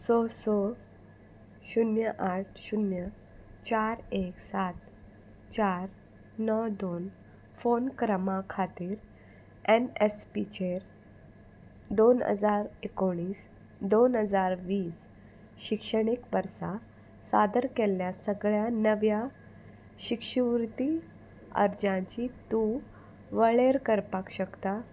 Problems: constant background noise